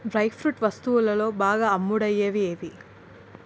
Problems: constant background noise